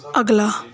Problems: background sounds at intervals